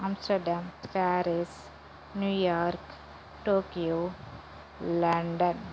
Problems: constant background noise